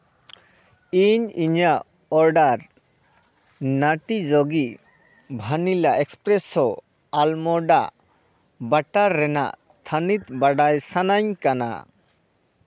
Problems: background conversations at intervals